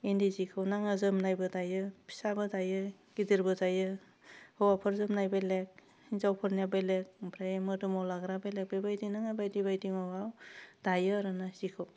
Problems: none marked